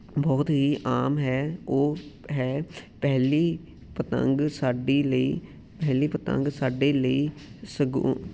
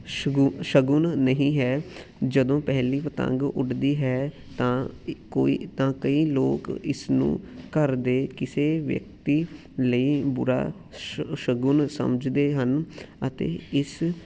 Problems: background sounds at intervals